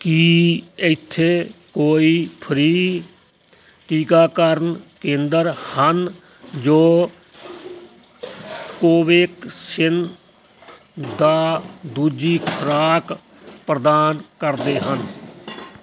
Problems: constant background noise